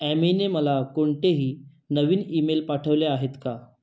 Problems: none marked